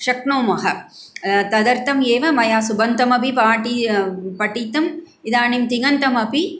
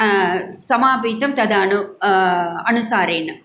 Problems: none marked